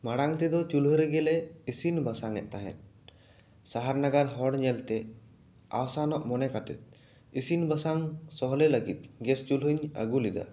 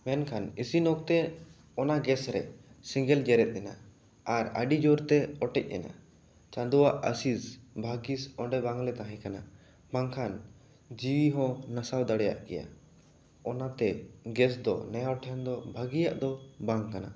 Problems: echo